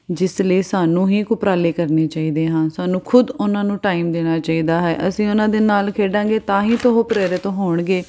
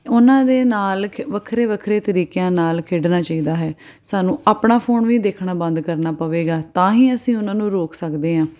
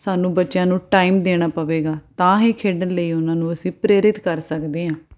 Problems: none marked